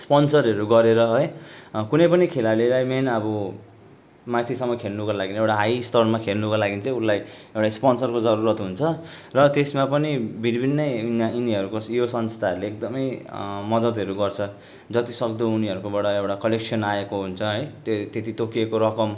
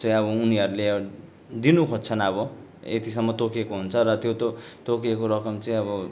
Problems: background sounds at intervals